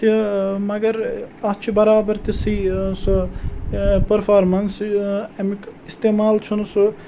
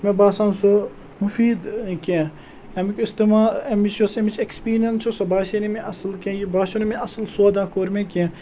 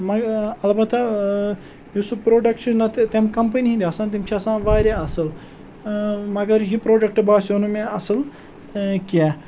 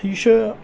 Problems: none marked